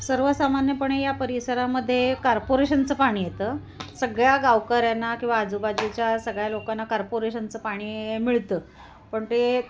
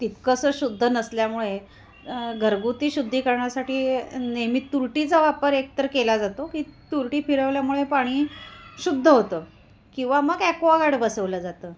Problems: constant background noise, continuous background conversations